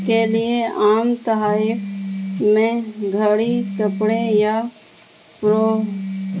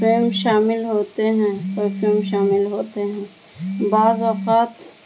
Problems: constant background noise